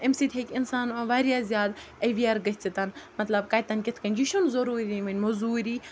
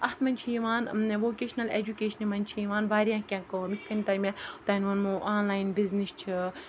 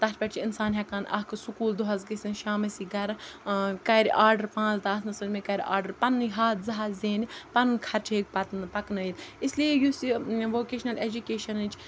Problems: none marked